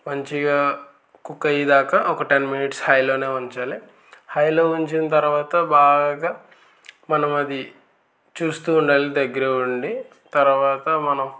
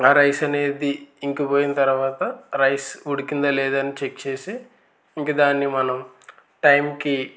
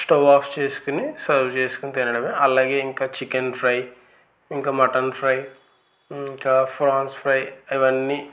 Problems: constant background noise